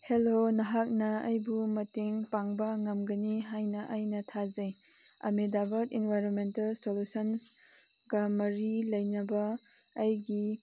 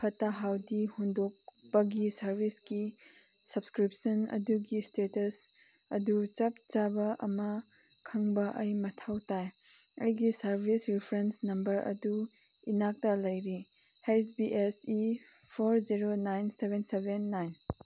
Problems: none marked